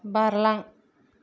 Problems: none marked